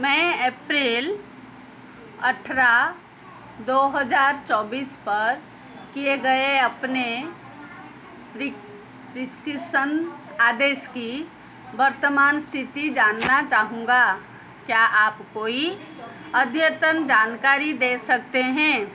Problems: constant background noise